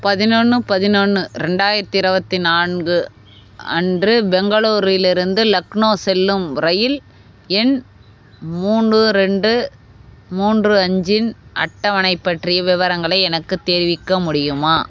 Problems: none marked